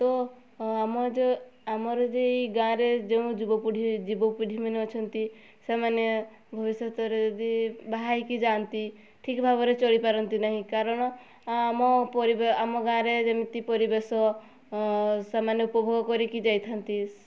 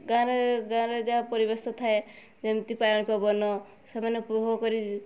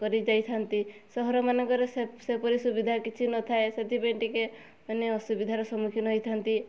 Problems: none marked